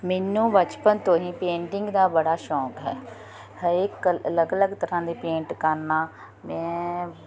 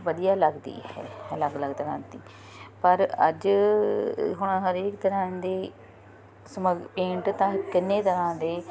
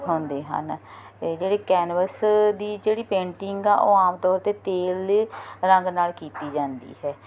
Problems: none marked